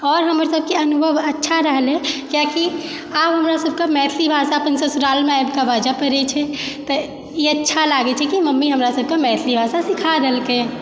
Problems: background sounds at intervals, background conversations at intervals